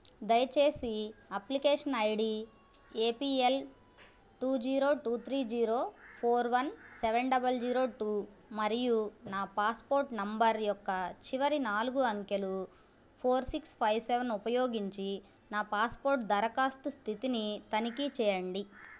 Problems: none marked